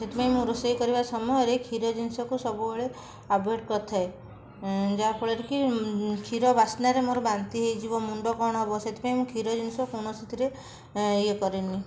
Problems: background conversations at intervals